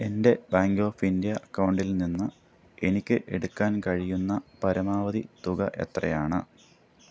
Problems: background sounds at intervals